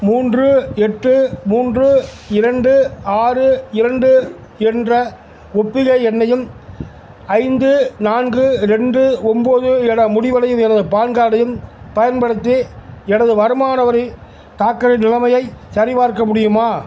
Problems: constant background noise